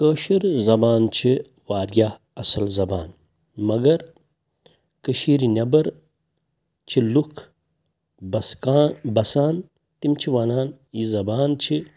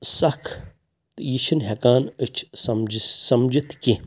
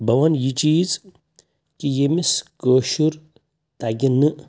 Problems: none marked